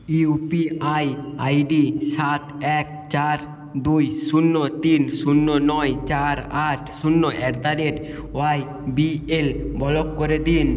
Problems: none marked